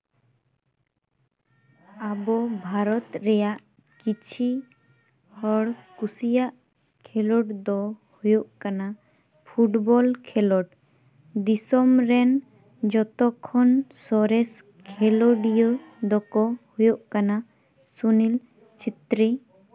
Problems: none marked